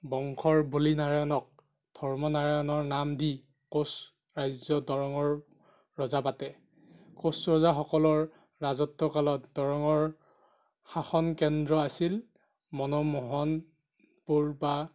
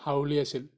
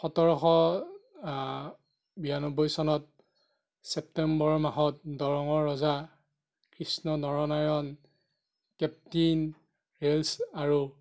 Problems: none marked